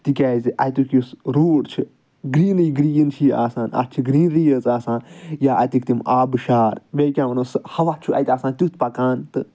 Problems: none marked